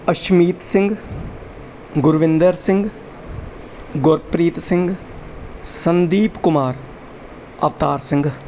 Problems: none marked